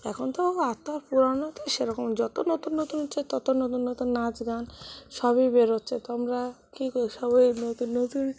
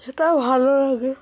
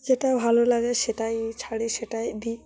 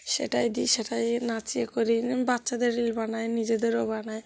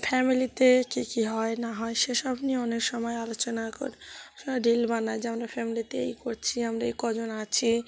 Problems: constant background noise, background conversations at intervals